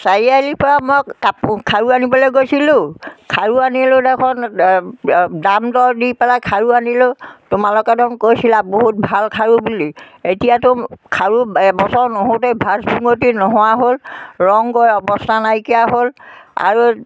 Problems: none marked